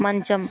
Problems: constant background noise